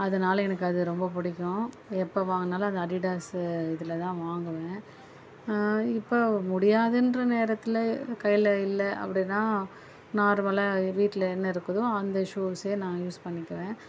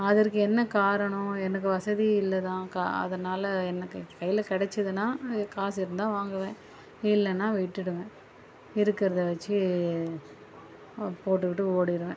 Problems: background sounds at intervals